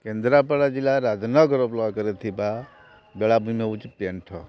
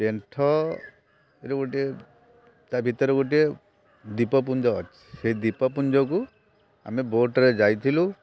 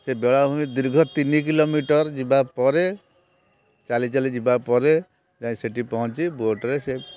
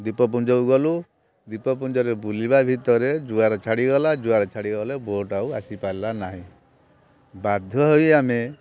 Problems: constant background noise